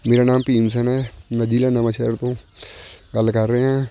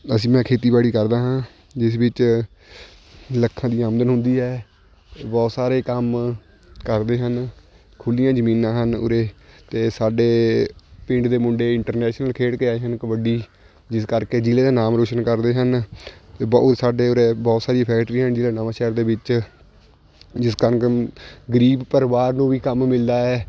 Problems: constant background noise